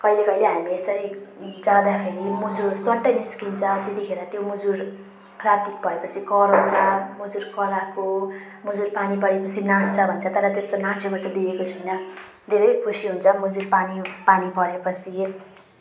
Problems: background sounds at intervals